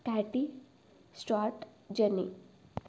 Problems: none marked